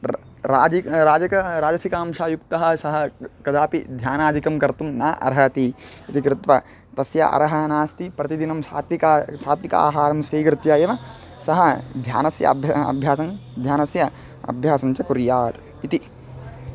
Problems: background sounds at intervals